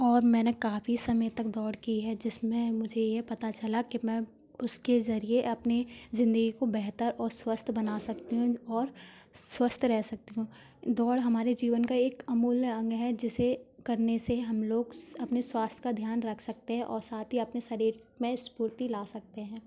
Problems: none marked